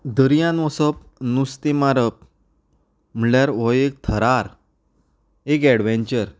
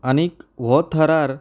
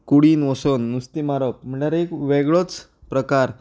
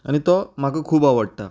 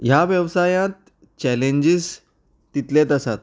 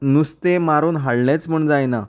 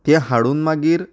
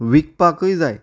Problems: none marked